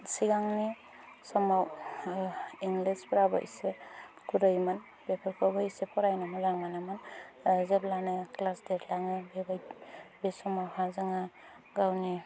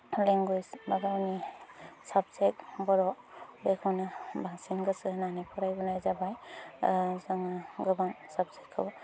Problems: low volume